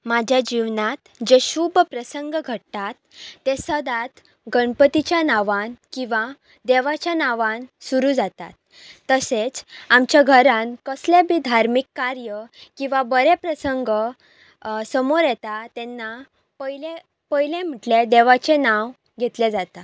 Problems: background sounds at intervals